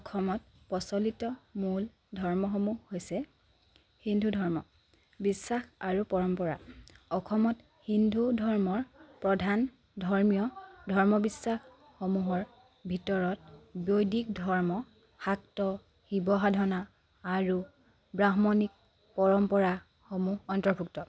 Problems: none marked